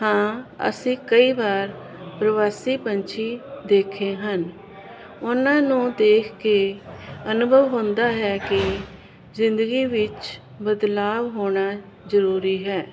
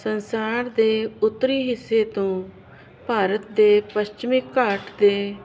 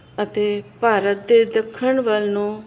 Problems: none marked